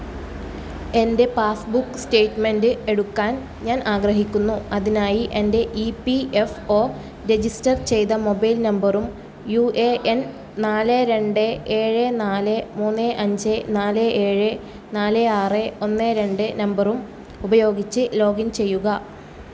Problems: background sounds at intervals